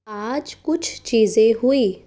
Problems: none marked